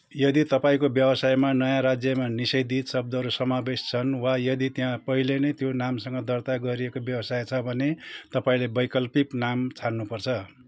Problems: none marked